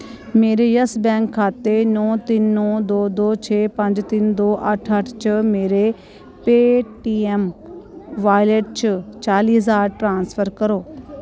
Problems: constant background noise